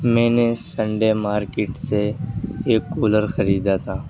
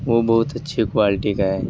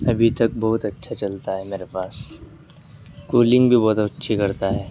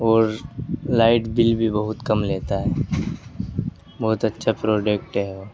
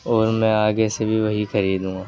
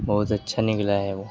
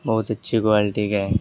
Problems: constant background noise